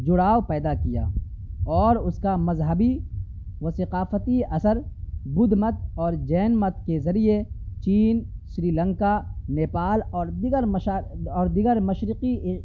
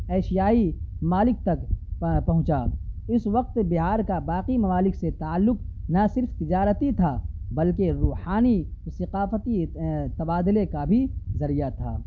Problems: none marked